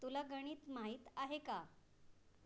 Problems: low volume